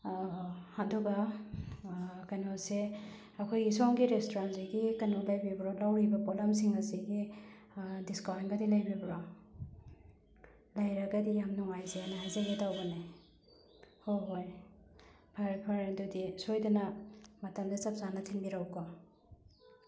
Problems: background sounds at intervals